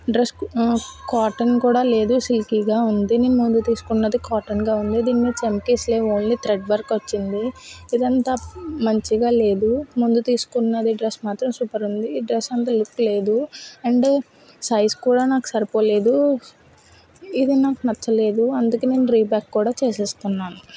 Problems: none marked